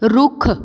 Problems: background sounds at intervals